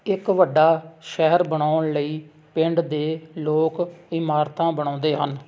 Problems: none marked